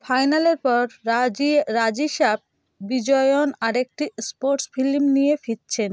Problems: constant background noise